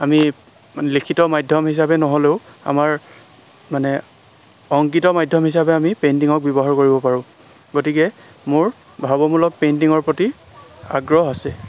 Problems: constant background noise